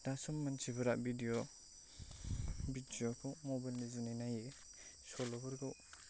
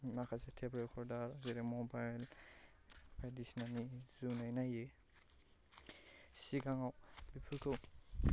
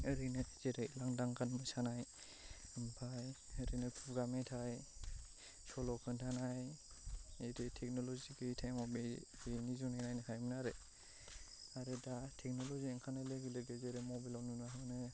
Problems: low volume